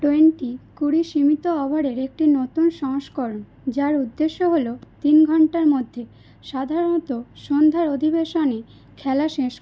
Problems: none marked